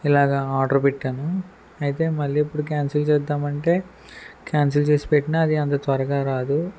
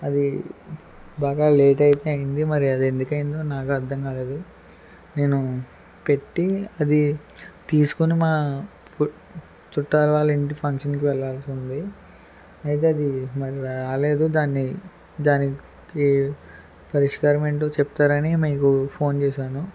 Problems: constant background noise